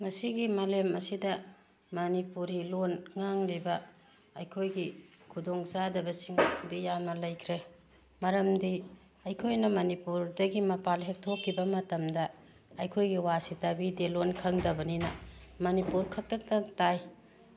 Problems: background sounds at intervals